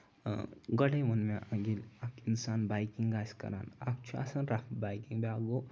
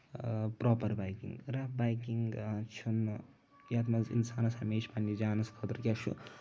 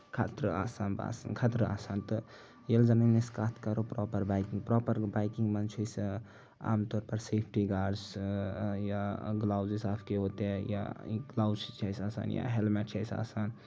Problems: none marked